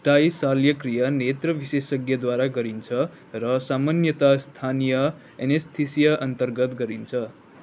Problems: none marked